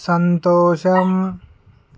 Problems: background sounds at intervals